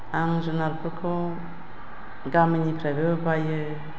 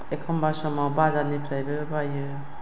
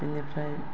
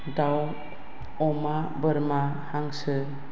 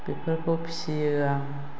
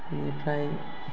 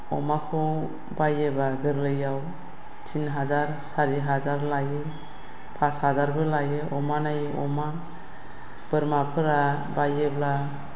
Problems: none marked